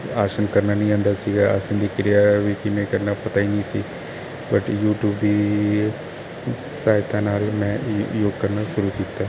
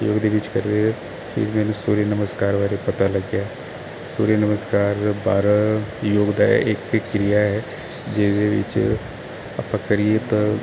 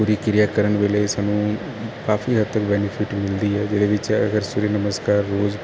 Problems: constant background noise